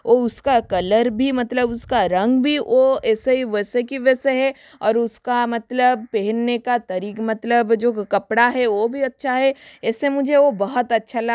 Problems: constant background noise